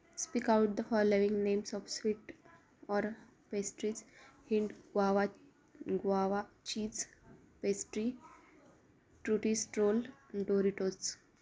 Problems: constant background noise, continuous background conversations